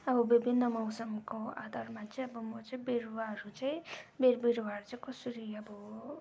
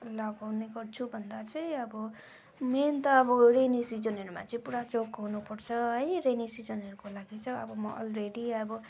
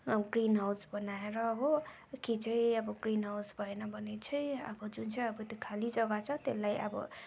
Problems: background sounds at intervals